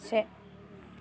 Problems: background sounds at intervals